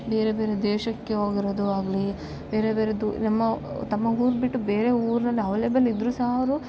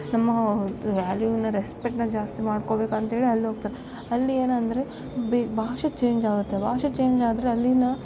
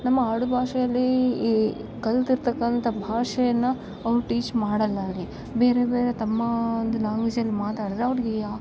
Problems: none marked